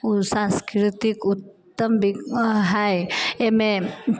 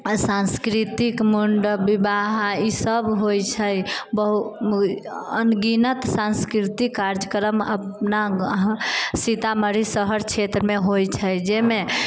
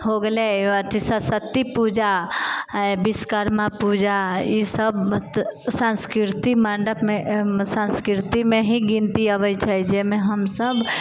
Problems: none marked